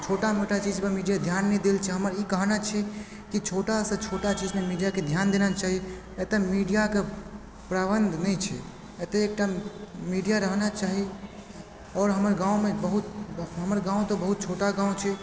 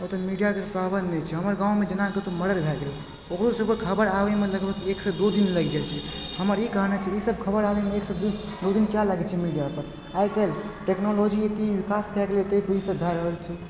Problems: constant background noise, background conversations at intervals